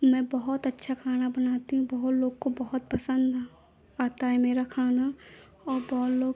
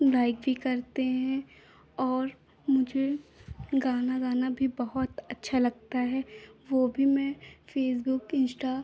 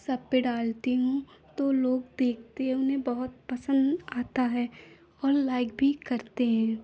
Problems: constant background noise